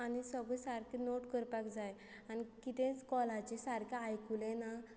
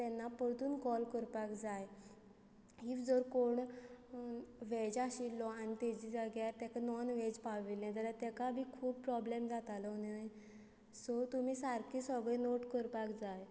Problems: constant background noise